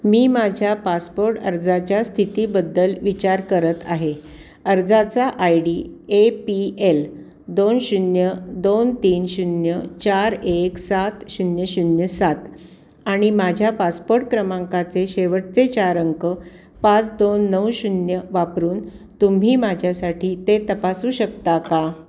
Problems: background sounds at intervals